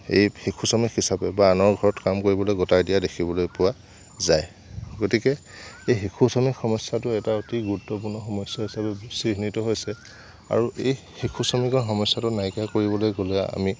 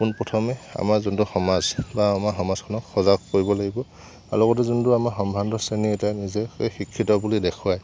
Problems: none marked